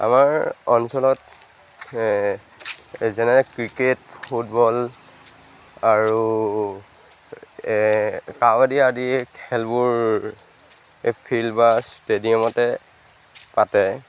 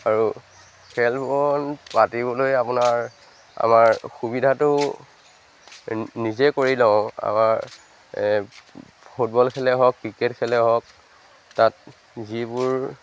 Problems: background sounds at intervals